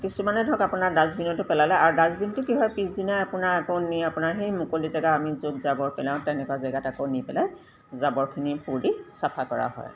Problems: background sounds at intervals